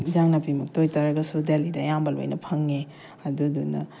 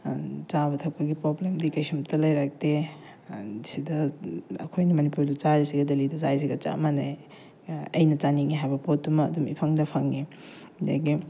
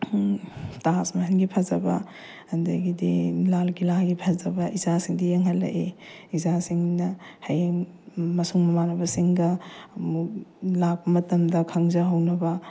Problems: none marked